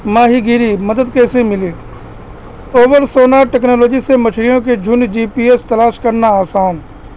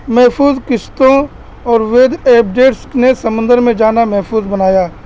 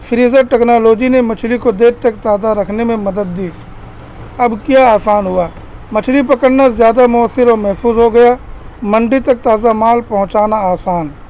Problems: constant background noise